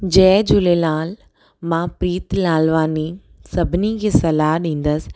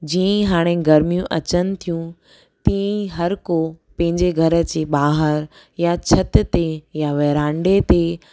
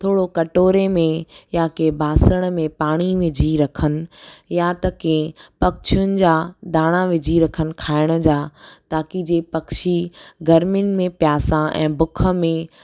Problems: none marked